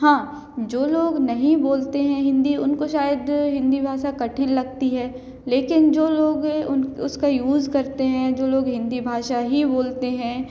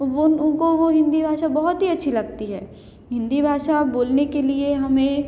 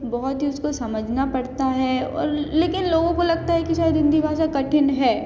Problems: constant background noise, background conversations at intervals, echo